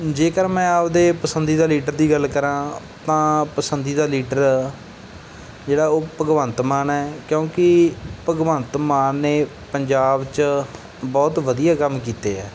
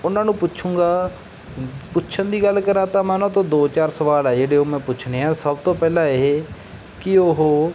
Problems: background sounds at intervals